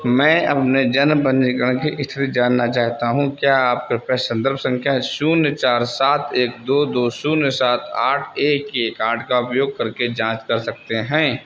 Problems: constant background noise